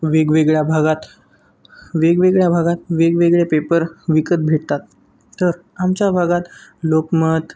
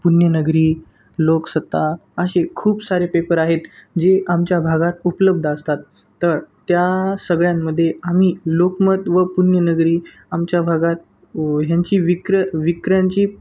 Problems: none marked